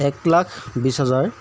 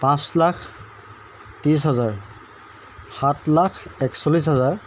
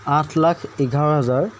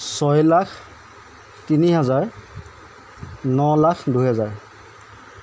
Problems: constant background noise